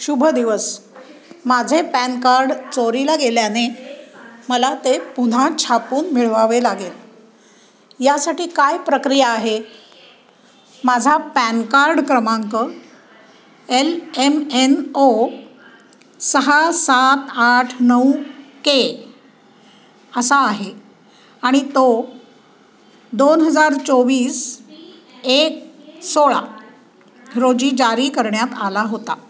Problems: continuous background conversations